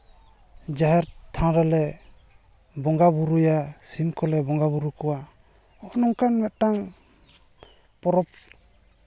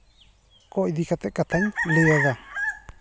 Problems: none marked